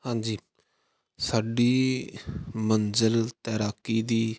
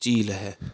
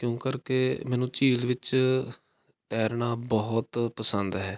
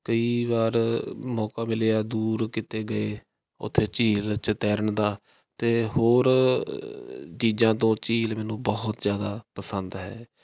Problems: none marked